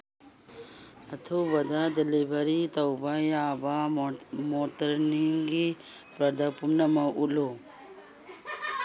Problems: background sounds at intervals